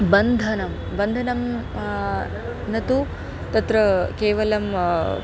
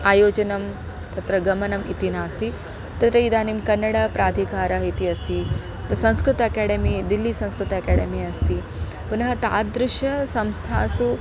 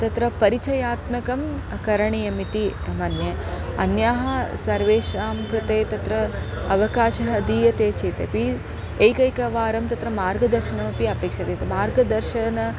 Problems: none marked